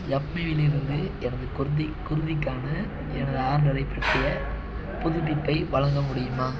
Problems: constant background noise